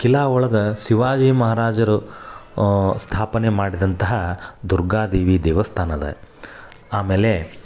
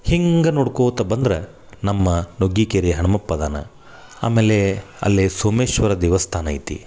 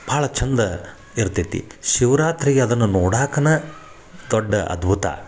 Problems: none marked